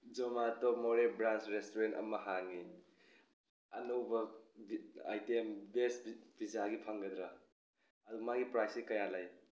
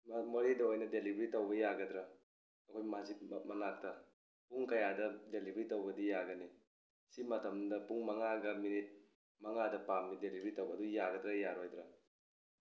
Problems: background sounds at intervals